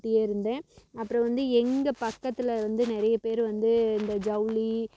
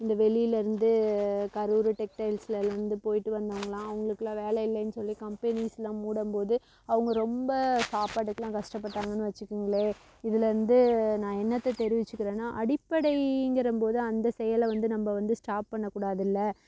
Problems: none marked